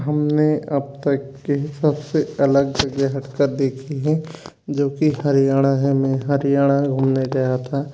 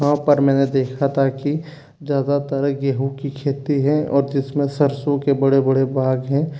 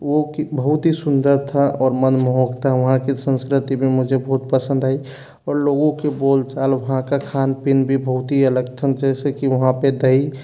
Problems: none marked